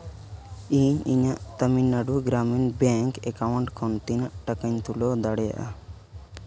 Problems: background sounds at intervals